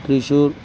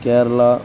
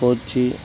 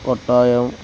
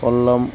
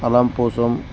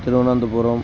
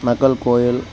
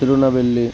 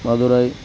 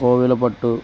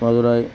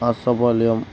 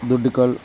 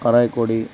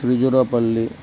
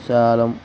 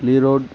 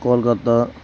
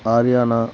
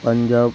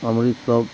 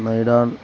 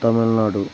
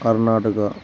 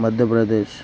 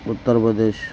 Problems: constant background noise